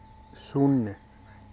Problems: none marked